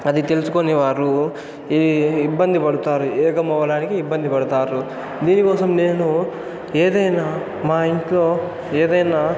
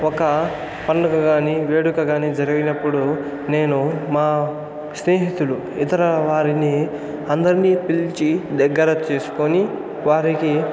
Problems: constant background noise, continuous background conversations